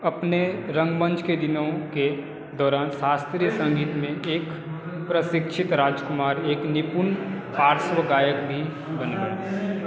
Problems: none marked